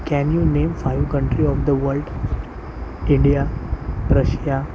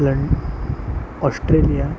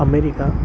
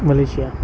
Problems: constant background noise